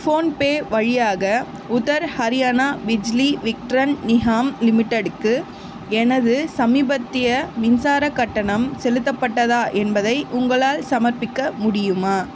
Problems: constant background noise